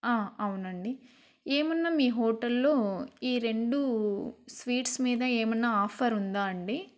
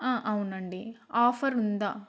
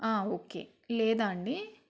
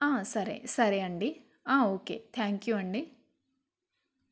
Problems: none marked